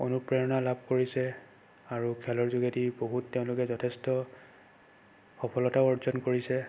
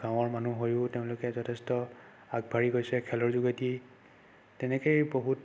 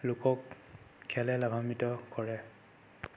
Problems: constant background noise